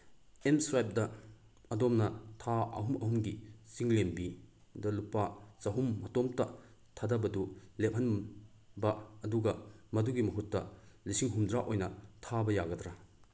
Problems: none marked